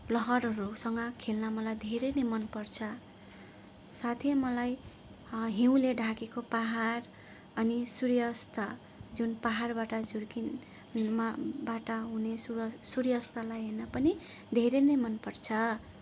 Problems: none marked